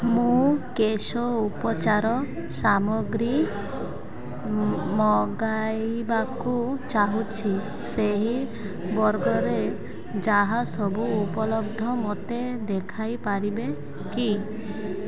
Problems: constant background noise